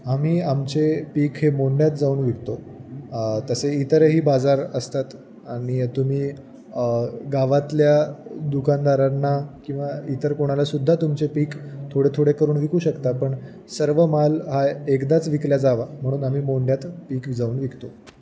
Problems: constant background noise, background conversations at intervals